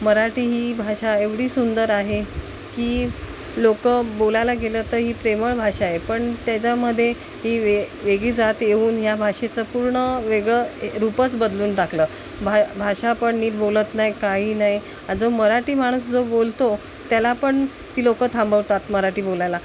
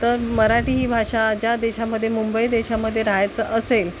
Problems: constant background noise, background conversations at intervals